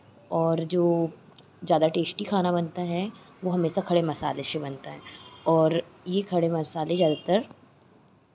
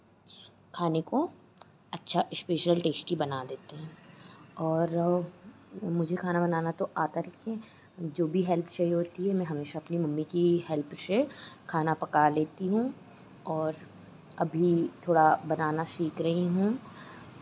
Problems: none marked